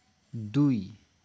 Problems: none marked